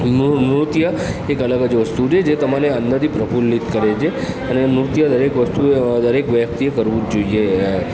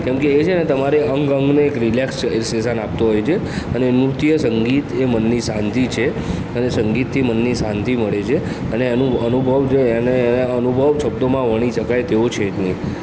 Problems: background sounds at intervals, continuous background conversations